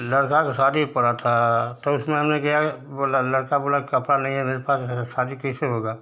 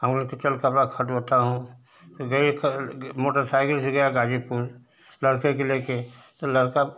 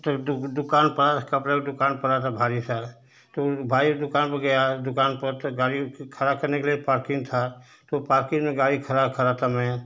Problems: constant background noise